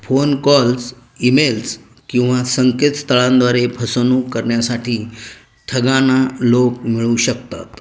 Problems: none marked